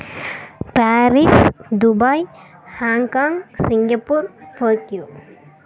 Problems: background sounds at intervals